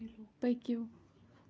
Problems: background sounds at intervals